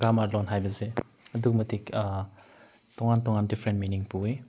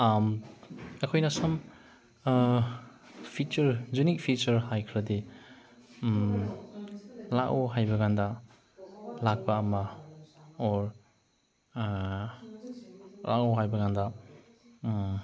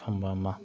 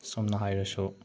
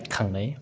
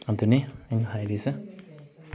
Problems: background sounds at intervals